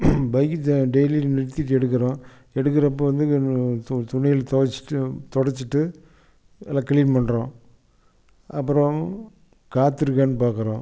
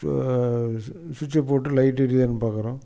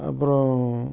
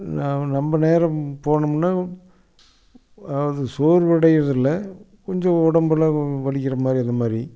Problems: none marked